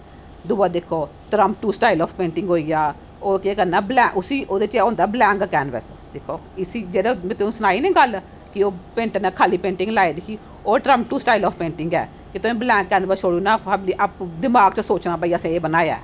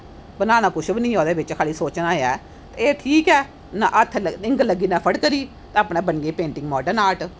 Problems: none marked